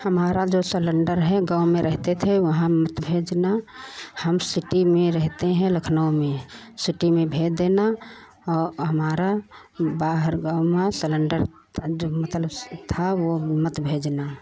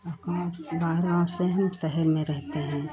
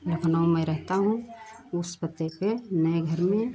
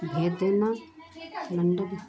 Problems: none marked